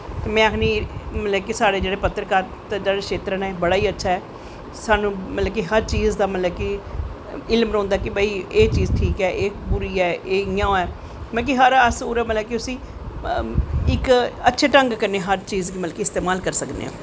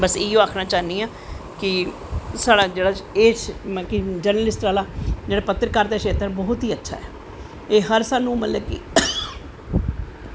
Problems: none marked